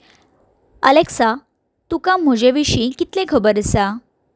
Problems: background sounds at intervals